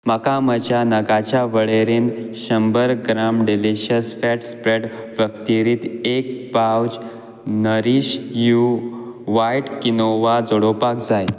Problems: constant background noise